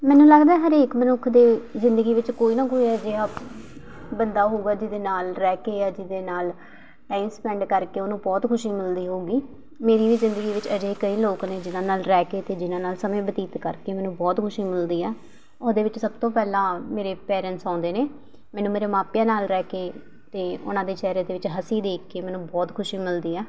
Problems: none marked